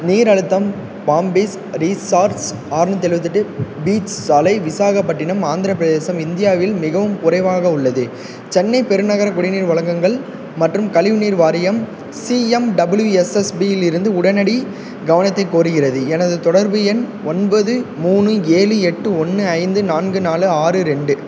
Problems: constant background noise